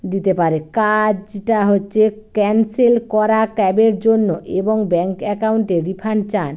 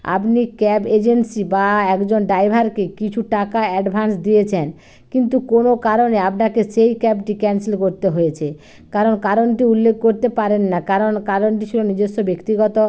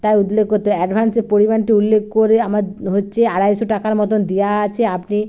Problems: none marked